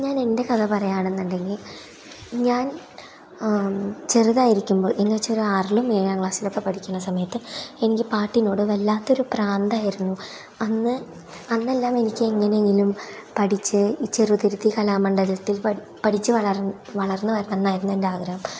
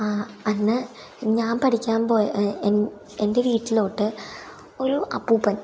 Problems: none marked